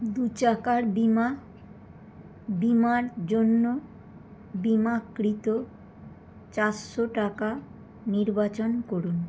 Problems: constant background noise